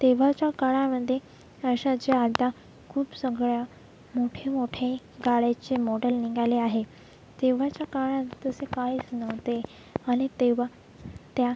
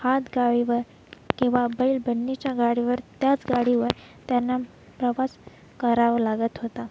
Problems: constant background noise